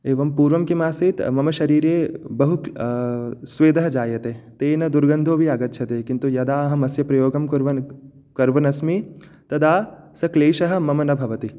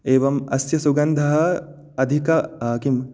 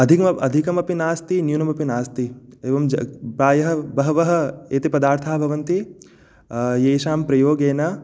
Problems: none marked